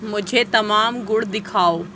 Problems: none marked